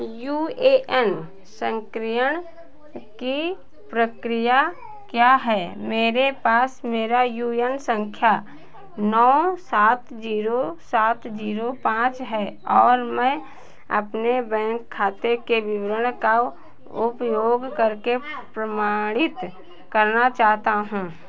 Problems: none marked